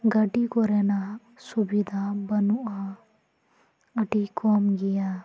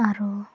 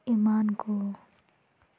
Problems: none marked